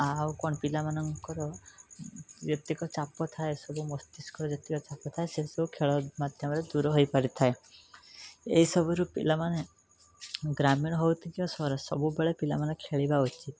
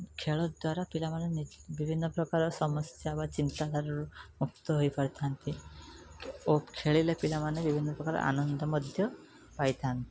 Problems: background sounds at intervals